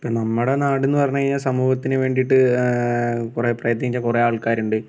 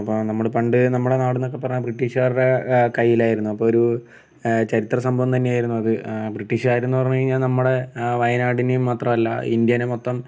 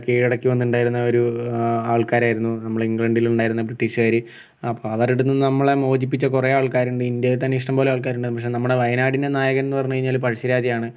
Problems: background sounds at intervals